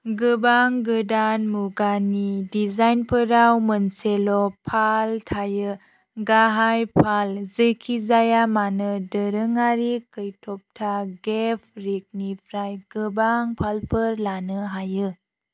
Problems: none marked